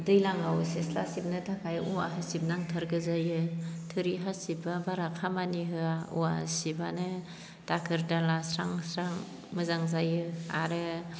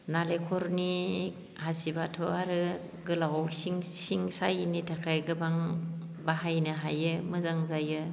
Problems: constant background noise